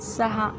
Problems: none marked